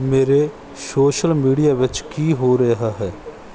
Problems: background sounds at intervals